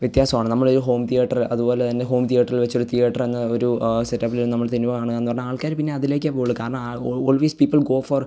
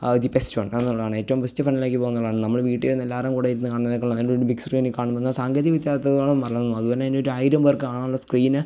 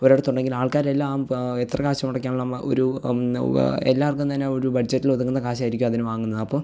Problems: none marked